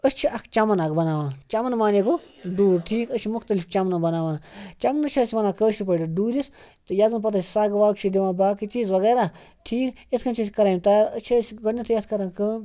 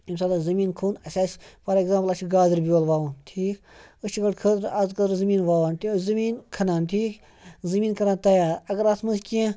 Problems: none marked